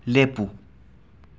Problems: none marked